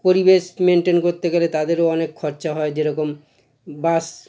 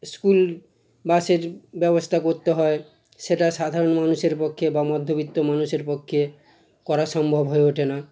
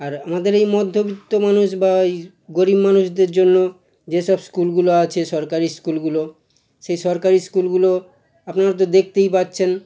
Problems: constant background noise